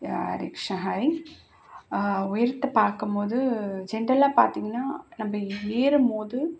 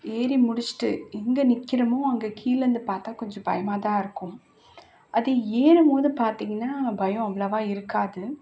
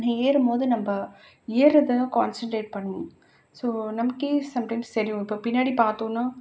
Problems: constant background noise